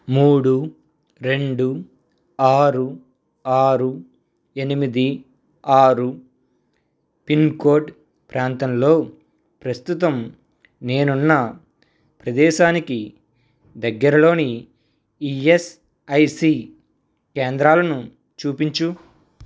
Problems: none marked